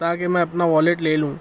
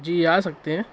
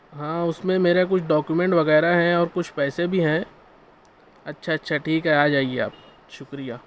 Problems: none marked